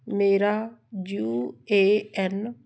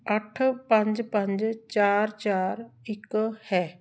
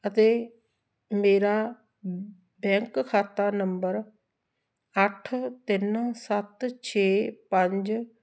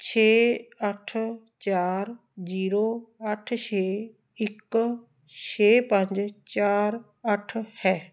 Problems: background sounds at intervals